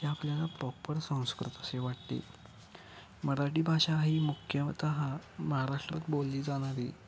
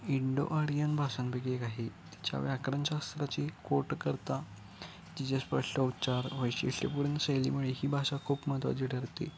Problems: constant background noise, continuous background conversations